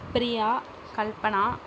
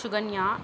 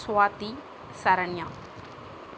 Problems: none marked